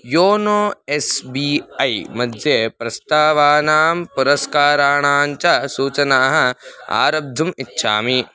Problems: background conversations at intervals